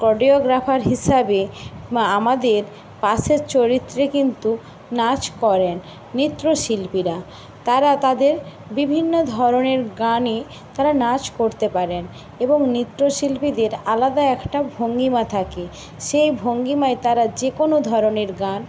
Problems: constant background noise